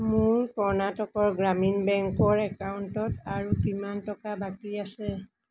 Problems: none marked